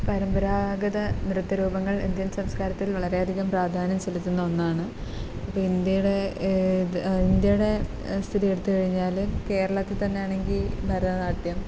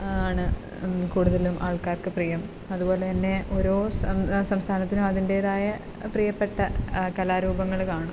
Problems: constant background noise